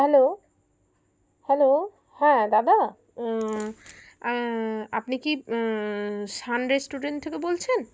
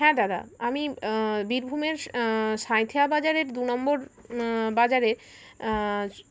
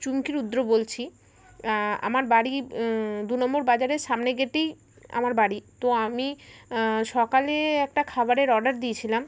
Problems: constant background noise